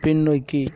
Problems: none marked